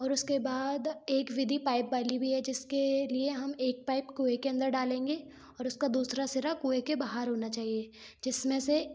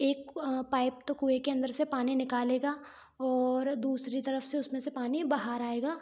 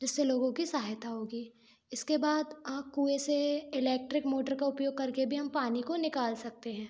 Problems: background sounds at intervals